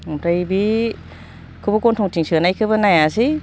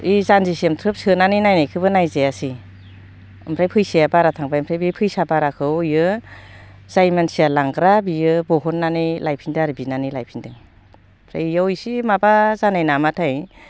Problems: low volume